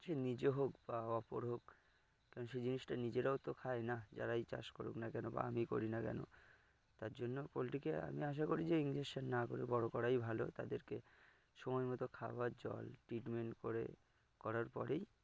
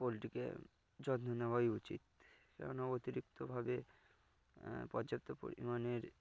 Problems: background sounds at intervals